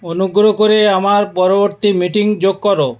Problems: background sounds at intervals, background conversations at intervals